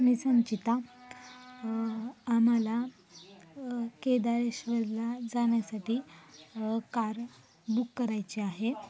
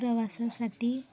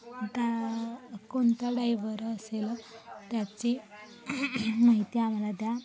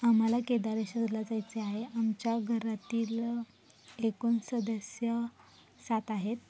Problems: background sounds at intervals, background conversations at intervals